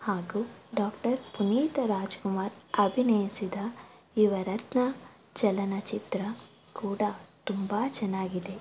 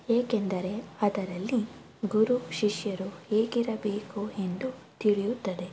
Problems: background sounds at intervals